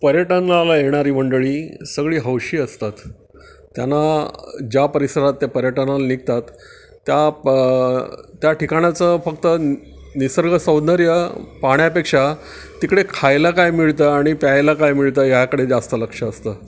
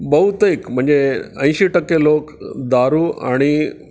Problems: background sounds at intervals